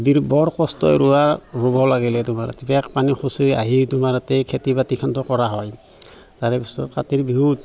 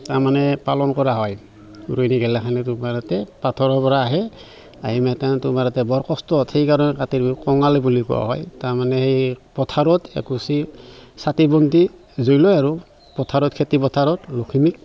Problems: constant background noise, background conversations at intervals